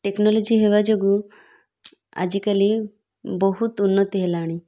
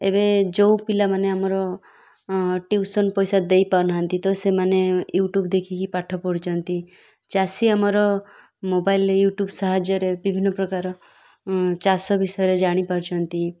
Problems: none marked